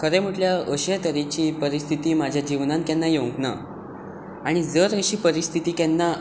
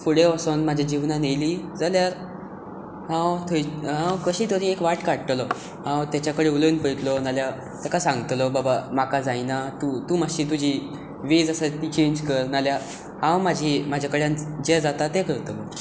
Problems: constant background noise